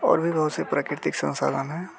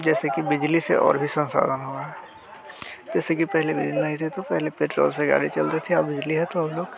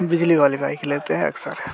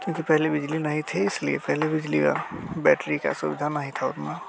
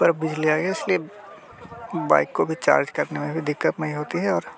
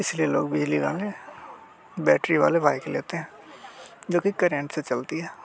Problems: constant background noise